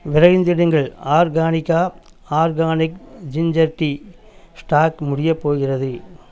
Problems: background sounds at intervals